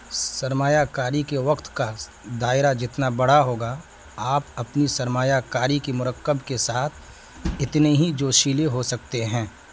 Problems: constant background noise